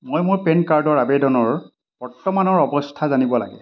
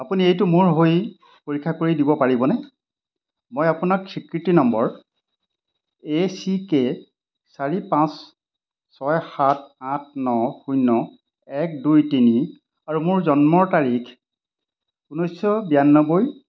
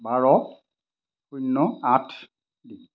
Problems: constant background noise